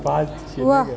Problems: background sounds at intervals, background conversations at intervals